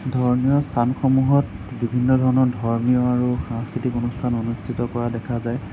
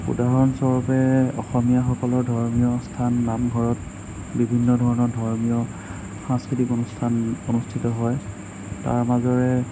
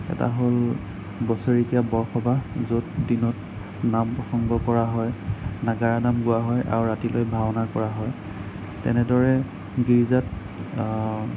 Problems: none marked